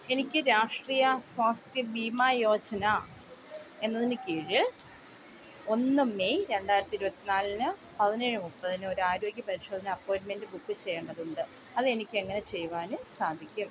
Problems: constant background noise